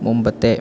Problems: constant background noise